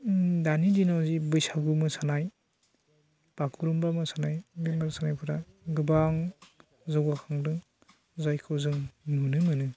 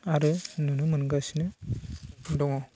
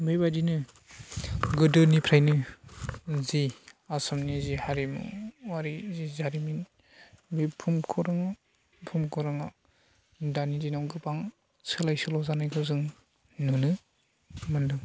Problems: constant background noise